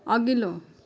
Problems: none marked